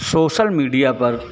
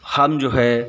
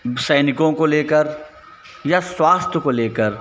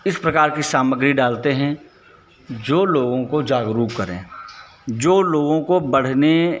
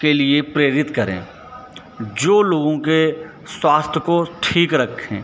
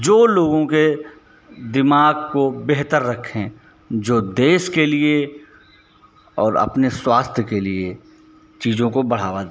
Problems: constant background noise